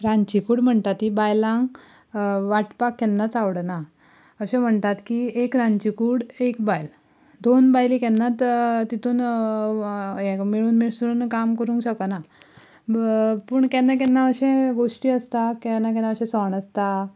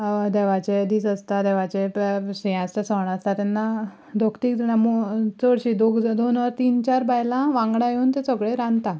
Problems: background sounds at intervals